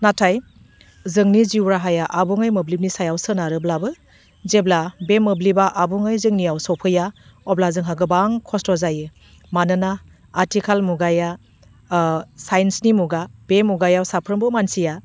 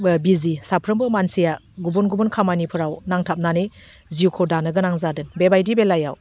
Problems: none marked